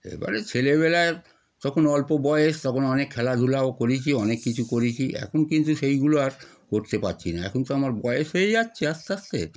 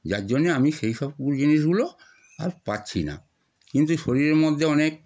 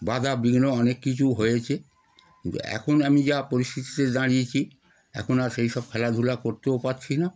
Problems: none marked